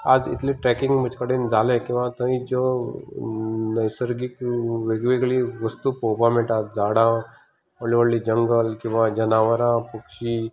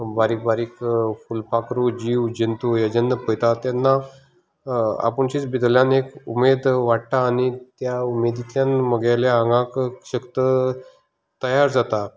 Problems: none marked